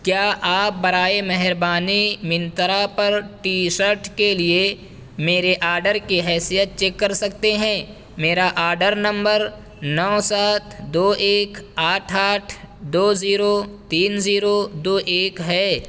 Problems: constant background noise